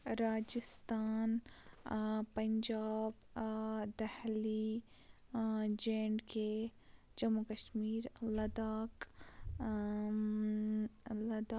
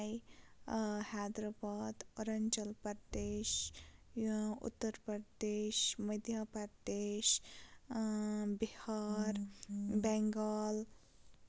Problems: constant background noise, low volume